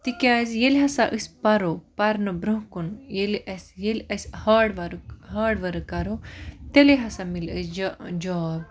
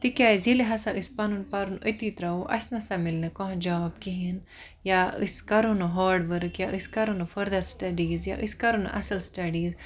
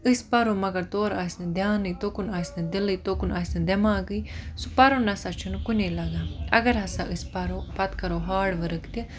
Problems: none marked